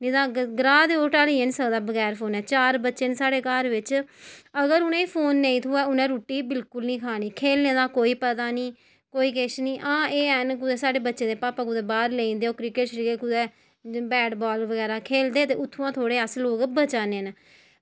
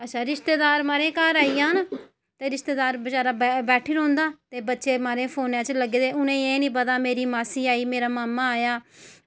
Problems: none marked